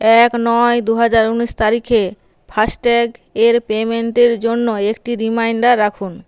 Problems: constant background noise